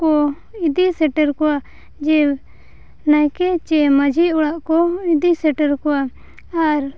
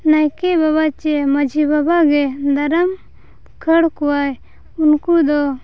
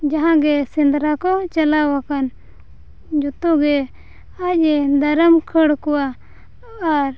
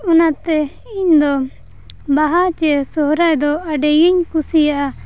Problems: none marked